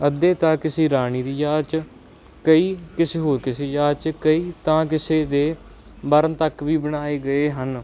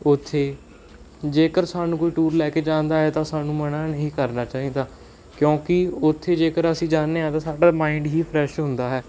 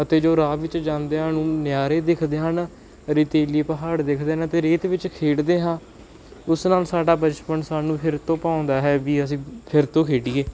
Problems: background sounds at intervals